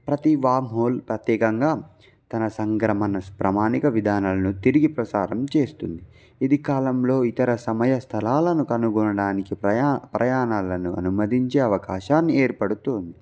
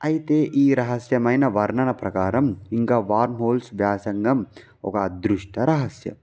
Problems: background sounds at intervals